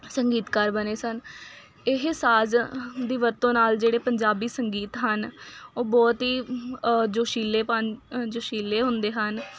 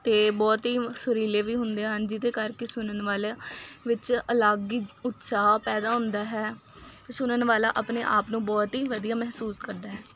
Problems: constant background noise